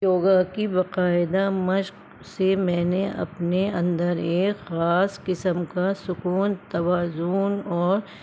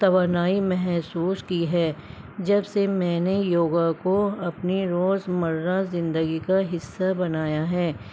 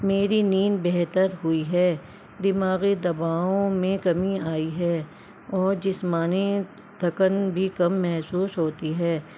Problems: constant background noise